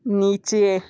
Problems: none marked